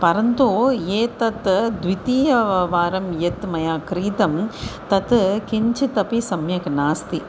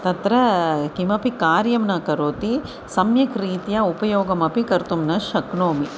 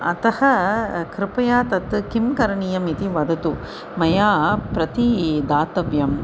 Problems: constant background noise